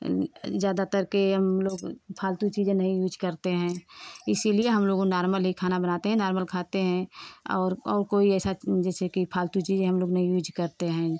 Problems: constant background noise